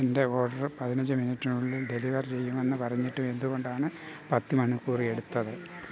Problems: background sounds at intervals